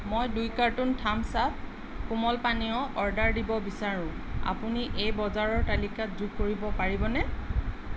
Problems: none marked